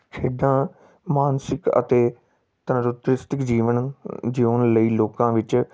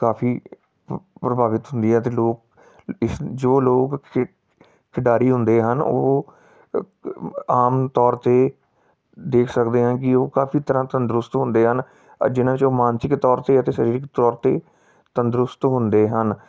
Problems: background sounds at intervals